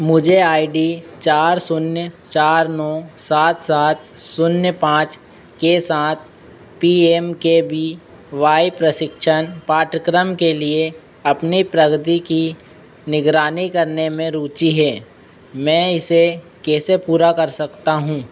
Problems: constant background noise